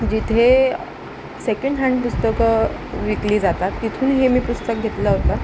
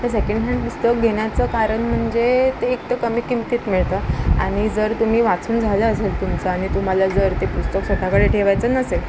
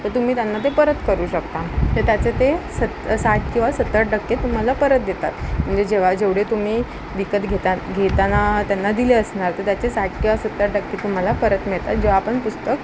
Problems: constant background noise